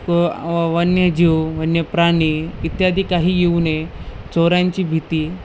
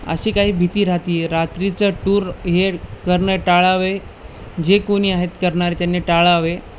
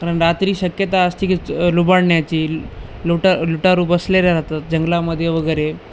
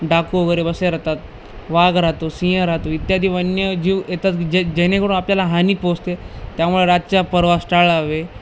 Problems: none marked